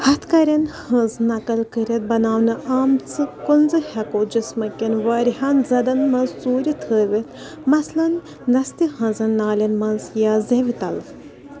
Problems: constant background noise, continuous background conversations